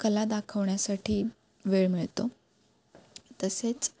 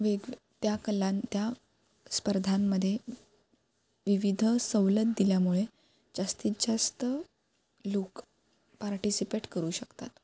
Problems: constant background noise